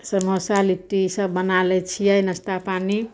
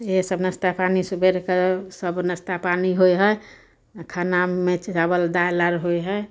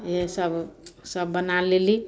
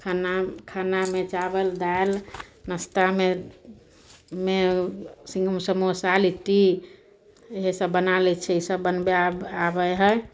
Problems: none marked